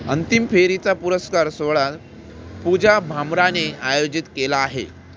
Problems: constant background noise